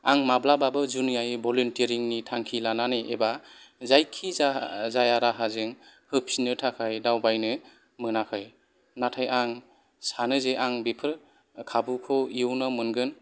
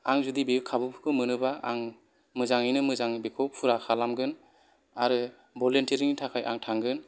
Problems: background sounds at intervals